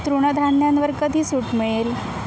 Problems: constant background noise